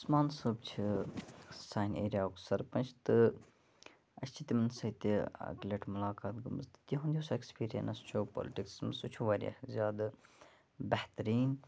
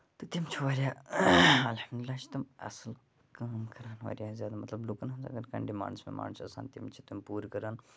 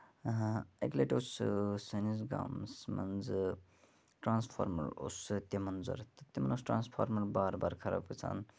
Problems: none marked